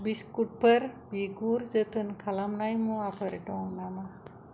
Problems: low volume